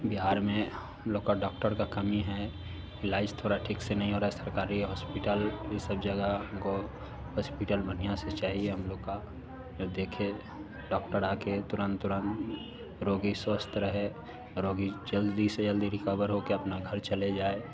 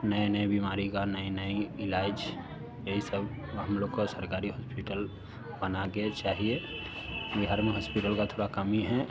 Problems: constant background noise